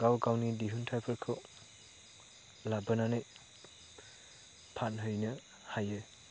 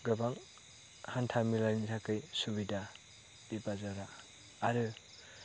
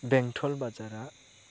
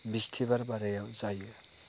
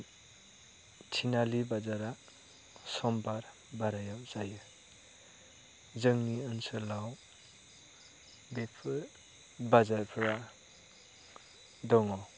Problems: constant background noise